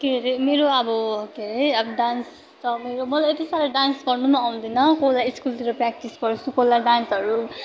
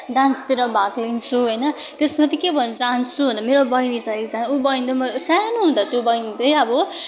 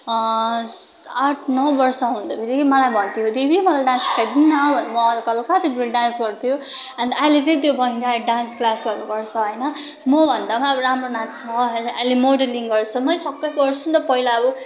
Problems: continuous background conversations